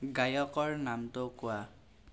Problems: constant background noise